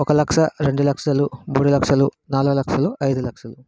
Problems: background sounds at intervals